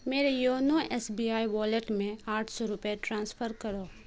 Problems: constant background noise